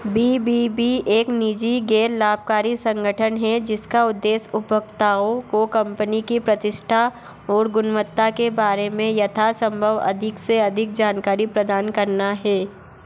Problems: background sounds at intervals